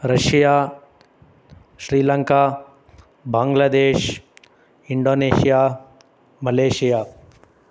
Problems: none marked